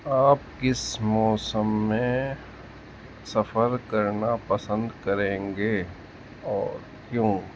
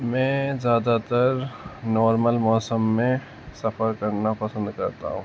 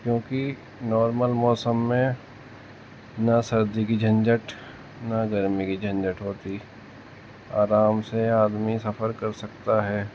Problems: constant background noise